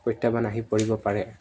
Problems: none marked